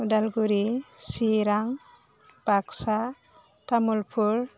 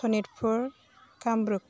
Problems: constant background noise